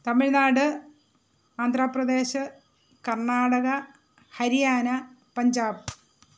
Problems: none marked